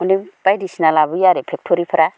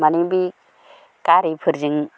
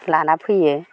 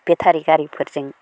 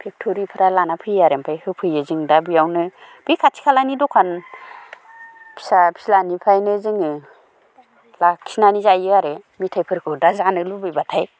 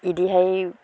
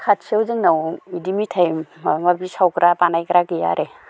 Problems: none marked